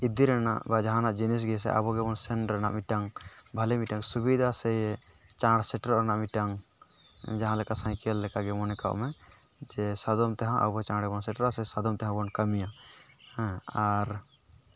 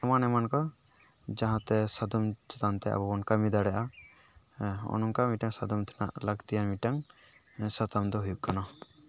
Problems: background sounds at intervals